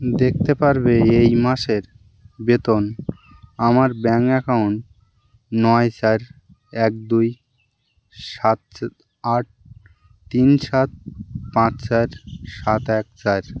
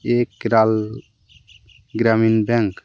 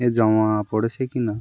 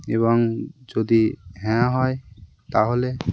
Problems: constant background noise